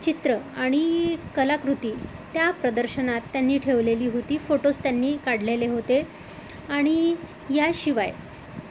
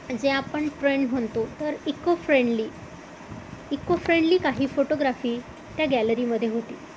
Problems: none marked